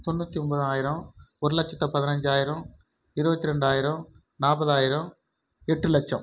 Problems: none marked